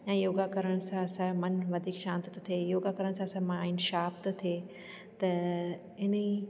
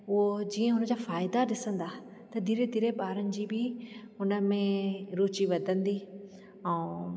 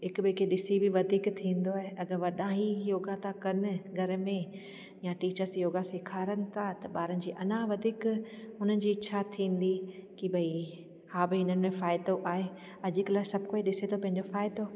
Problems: constant background noise, echo